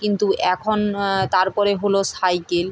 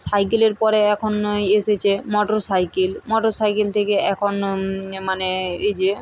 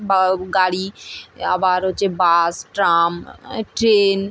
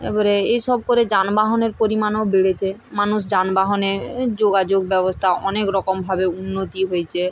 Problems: none marked